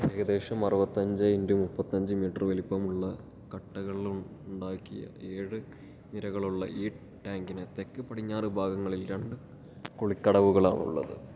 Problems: low volume